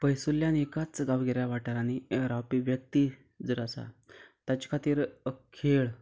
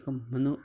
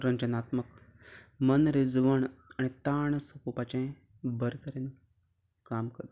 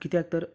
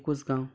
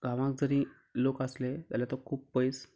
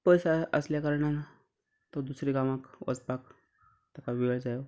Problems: background sounds at intervals